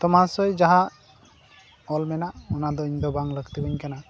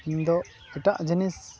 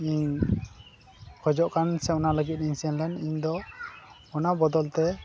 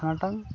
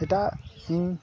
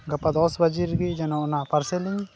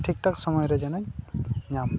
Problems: constant background noise, continuous background conversations